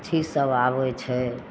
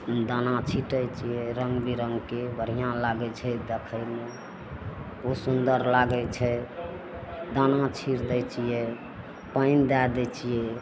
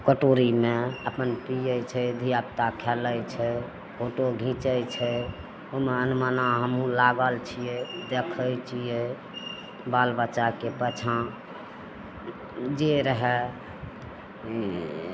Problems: none marked